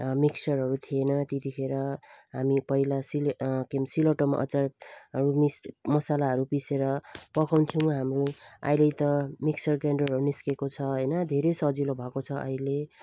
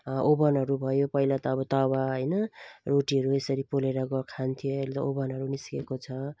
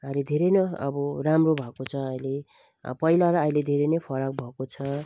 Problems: none marked